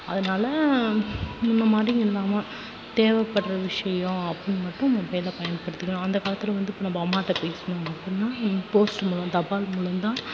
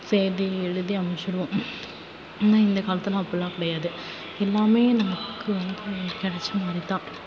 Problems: constant background noise, low volume